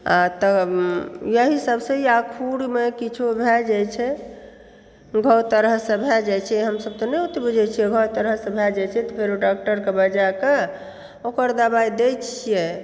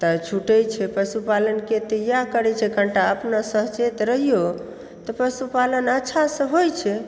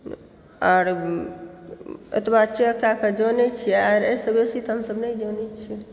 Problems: background sounds at intervals